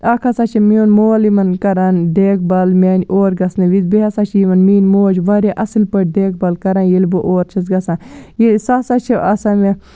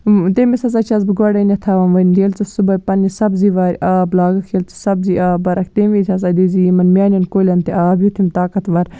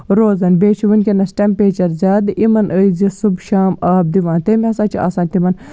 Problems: background sounds at intervals